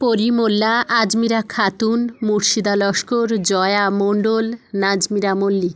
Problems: constant background noise, background conversations at intervals